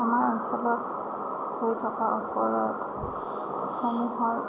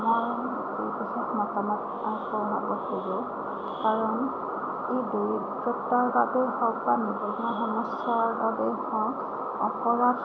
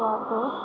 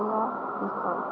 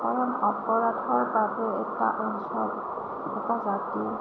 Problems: constant background noise, low volume